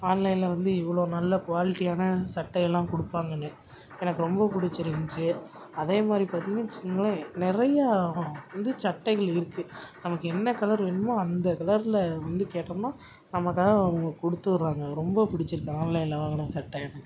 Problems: background sounds at intervals